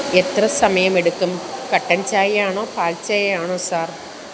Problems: constant background noise